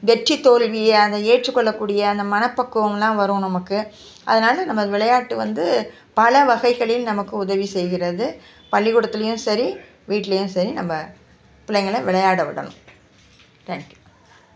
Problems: none marked